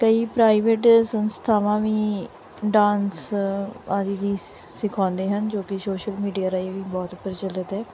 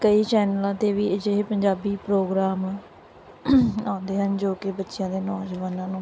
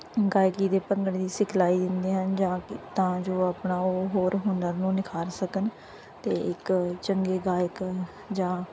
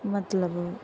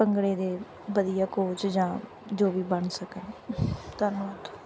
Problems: background sounds at intervals, background conversations at intervals